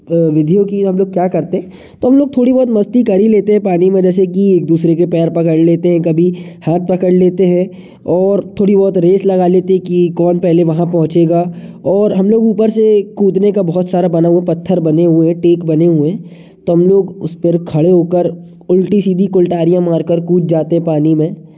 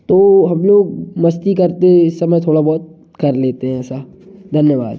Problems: none marked